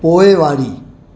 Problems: constant background noise